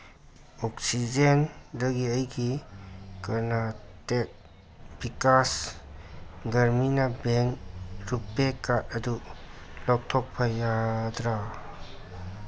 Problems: constant background noise